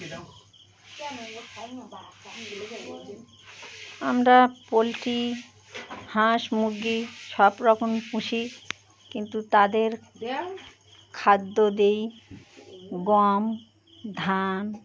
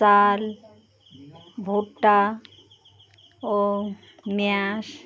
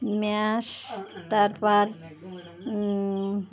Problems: background sounds at intervals, continuous background conversations